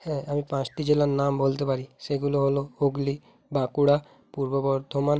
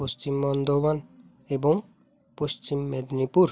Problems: background sounds at intervals